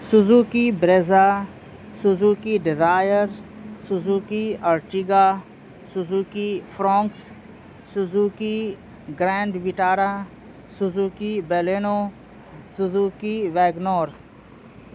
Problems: constant background noise